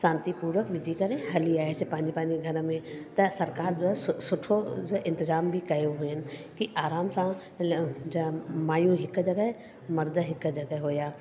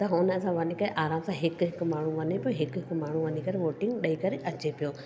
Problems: constant background noise, echo